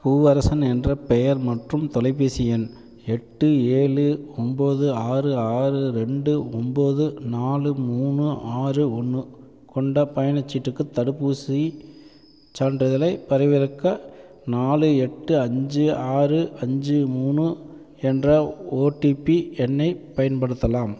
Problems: background sounds at intervals